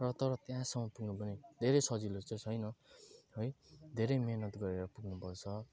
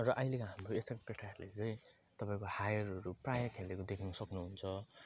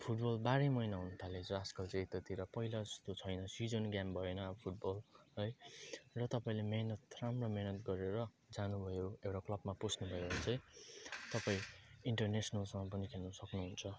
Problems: constant background noise